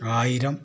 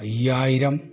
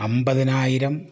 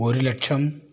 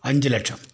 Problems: none marked